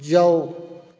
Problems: background sounds at intervals